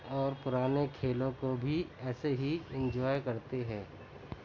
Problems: constant background noise, continuous background conversations